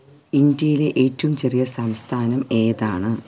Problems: background sounds at intervals